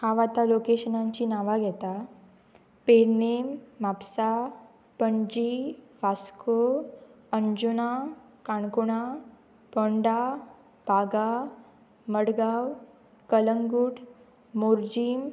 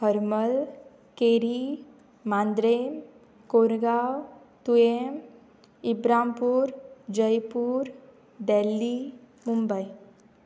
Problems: background sounds at intervals